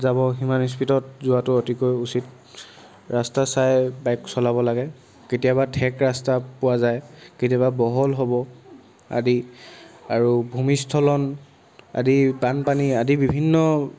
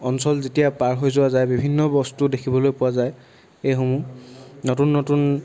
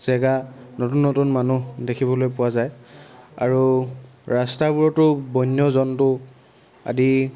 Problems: none marked